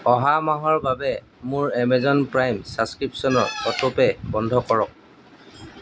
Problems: none marked